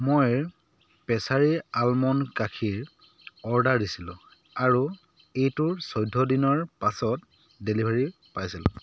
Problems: constant background noise